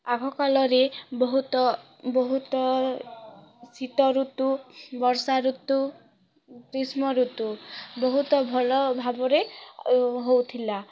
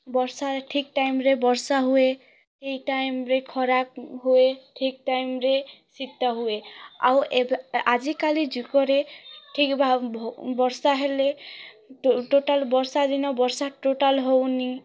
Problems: background sounds at intervals, continuous background conversations